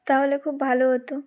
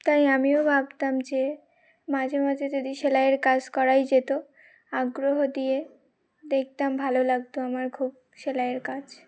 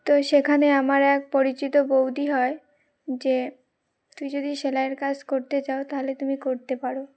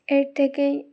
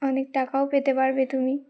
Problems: none marked